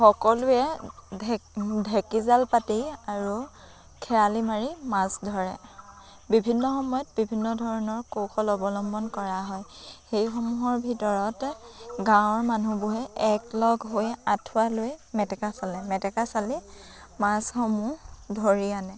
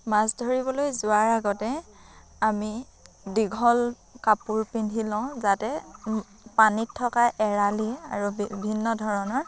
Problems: constant background noise